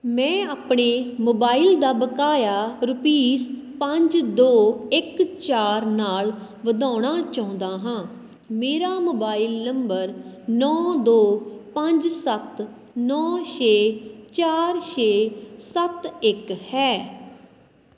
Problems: constant background noise